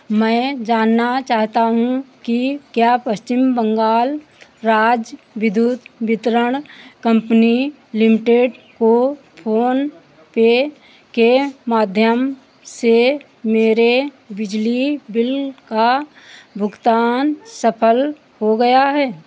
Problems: constant background noise, background conversations at intervals